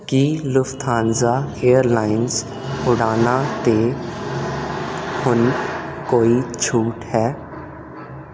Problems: constant background noise